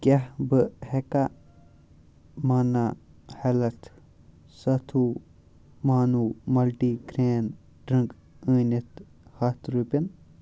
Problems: constant background noise